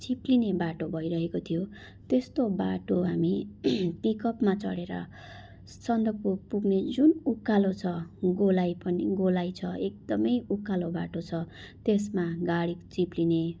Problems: background sounds at intervals